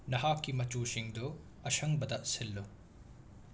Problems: constant background noise